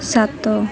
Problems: none marked